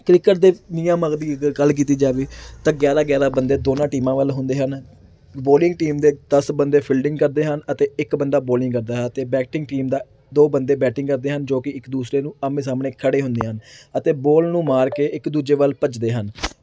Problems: none marked